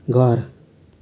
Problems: none marked